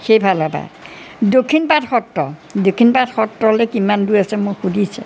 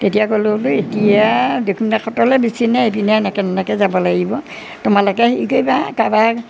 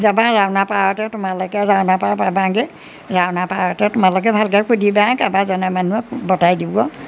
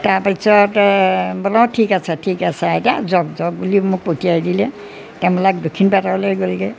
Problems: none marked